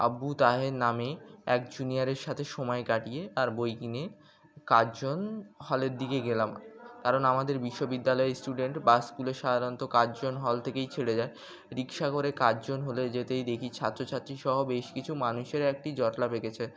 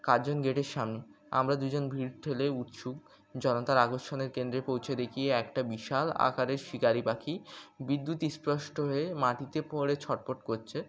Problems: background sounds at intervals